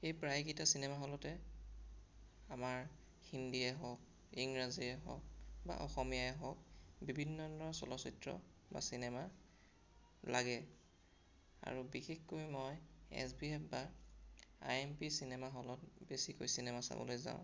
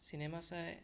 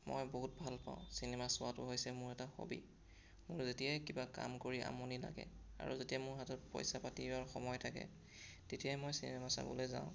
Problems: none marked